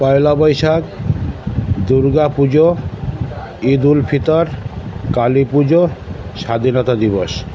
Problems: constant background noise, continuous background conversations